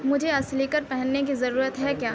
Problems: constant background noise